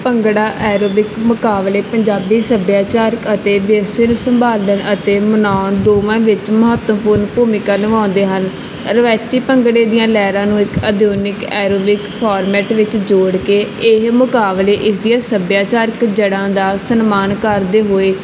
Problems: background conversations at intervals